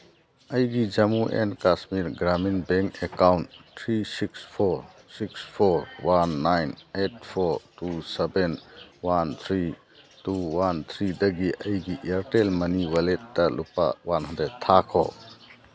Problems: background sounds at intervals